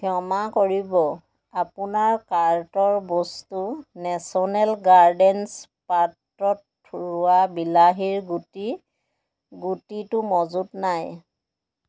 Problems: background sounds at intervals